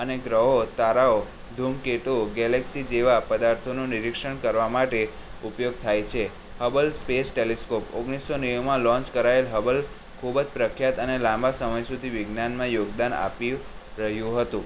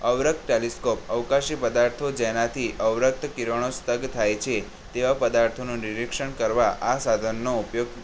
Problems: none marked